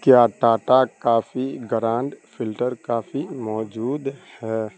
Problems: constant background noise